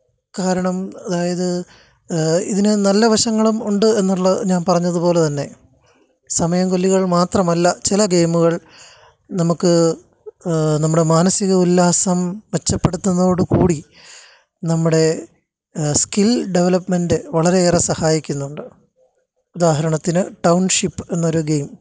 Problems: none marked